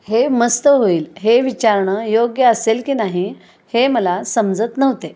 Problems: constant background noise